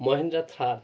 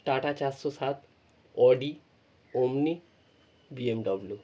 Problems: none marked